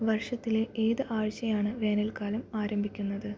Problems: low volume